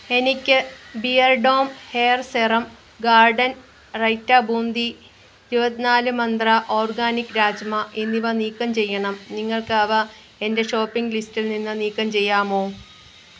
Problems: constant background noise